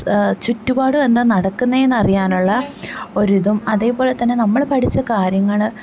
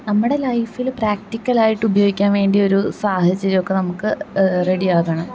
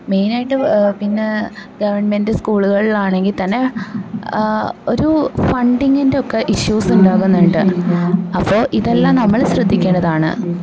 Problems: background conversations at intervals